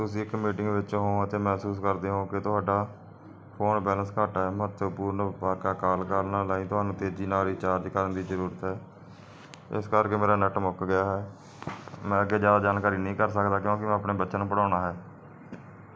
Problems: background sounds at intervals